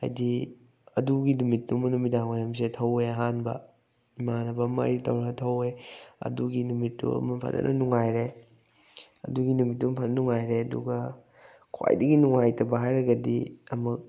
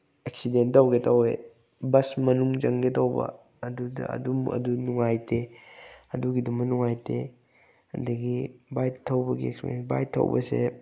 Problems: none marked